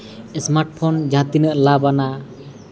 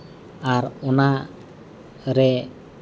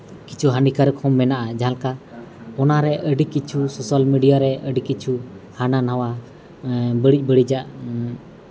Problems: constant background noise, continuous background conversations